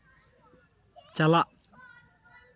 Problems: background sounds at intervals